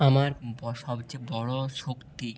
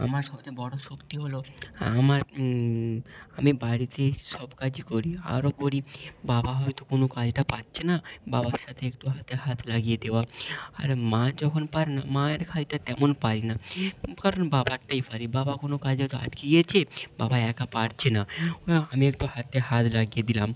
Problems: constant background noise